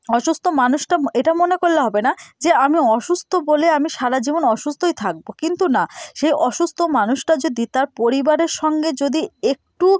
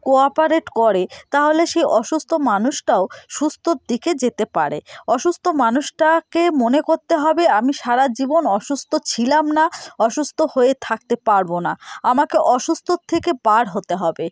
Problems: none marked